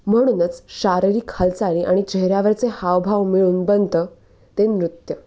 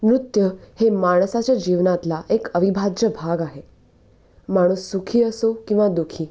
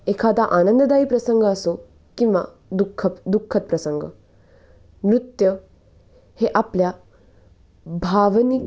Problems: none marked